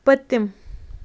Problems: constant background noise